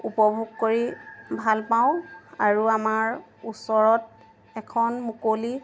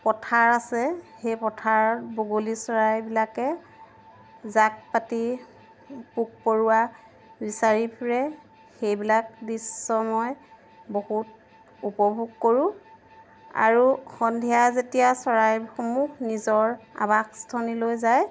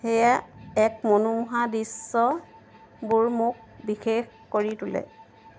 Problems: constant background noise